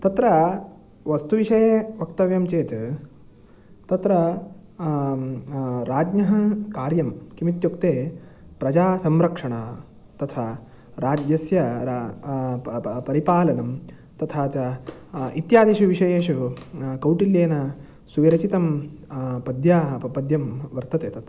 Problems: background sounds at intervals